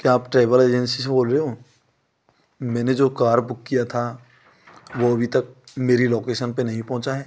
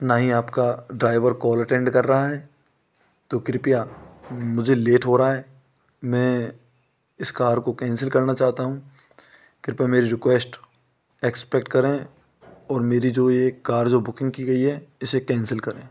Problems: none marked